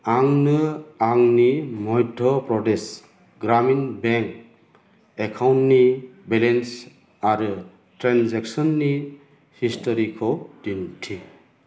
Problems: constant background noise